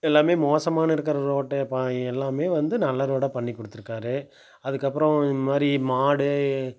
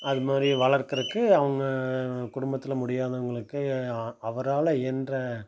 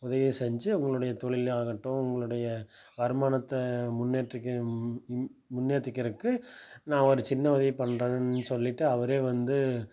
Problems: background sounds at intervals